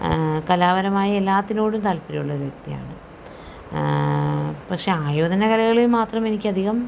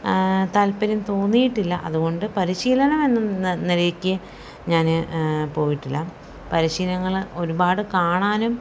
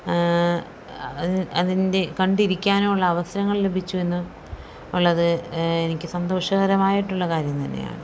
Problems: none marked